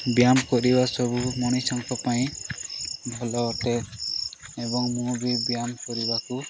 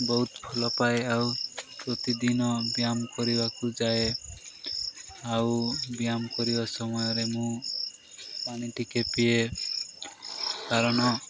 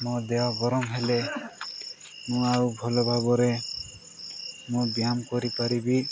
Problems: constant background noise, background conversations at intervals